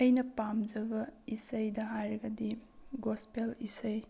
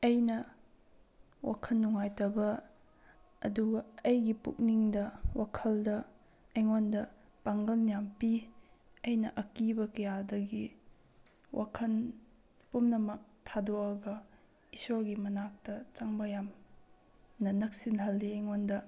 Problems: low volume